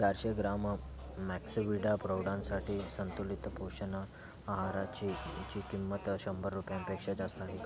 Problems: none marked